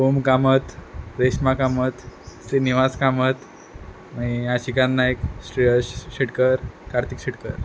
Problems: none marked